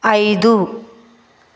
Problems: constant background noise, echo